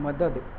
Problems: constant background noise, low volume